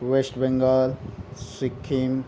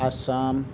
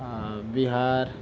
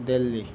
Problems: background sounds at intervals